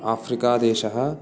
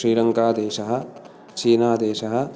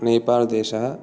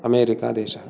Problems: none marked